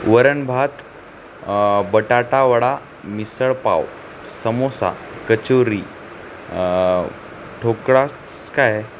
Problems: constant background noise